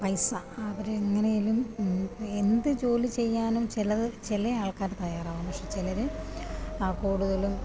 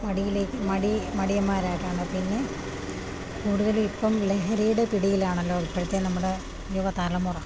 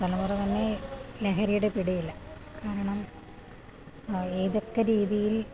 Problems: none marked